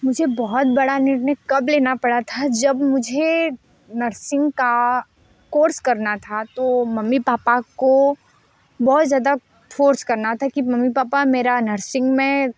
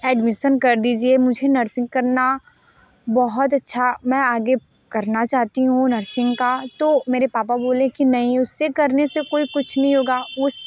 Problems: background sounds at intervals